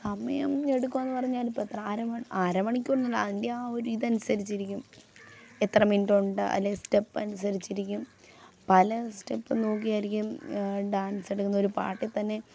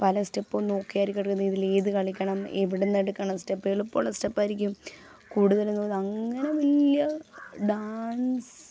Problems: background sounds at intervals, low volume